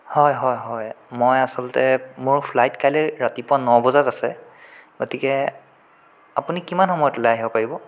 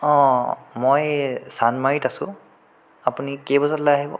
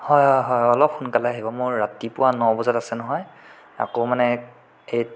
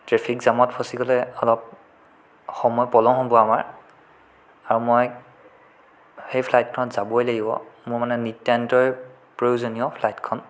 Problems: none marked